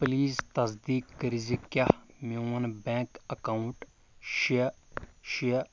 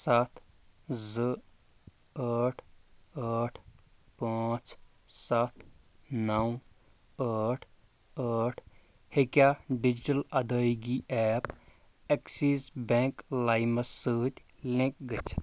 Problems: low volume